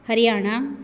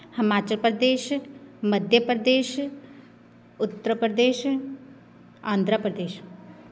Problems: none marked